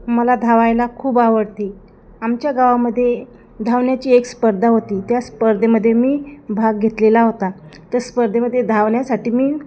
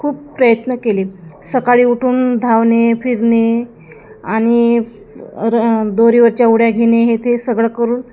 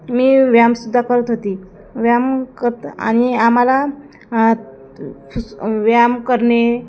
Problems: none marked